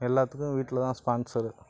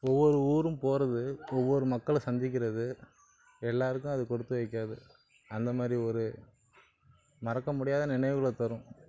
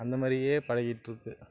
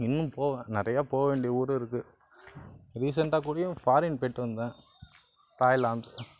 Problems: constant background noise, background conversations at intervals